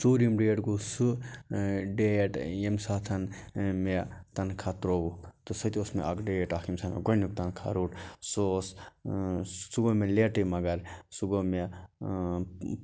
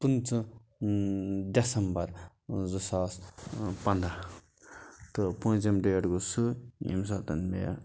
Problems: background sounds at intervals